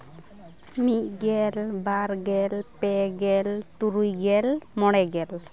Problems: background conversations at intervals